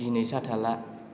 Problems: constant background noise